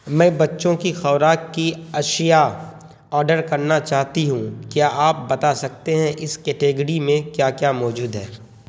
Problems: constant background noise